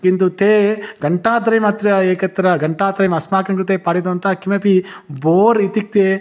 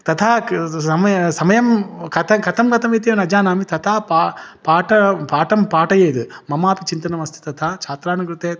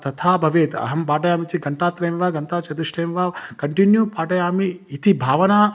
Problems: none marked